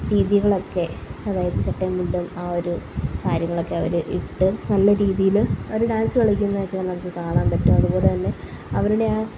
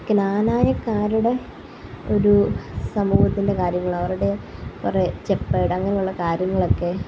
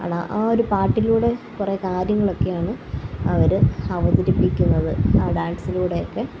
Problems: background sounds at intervals, low volume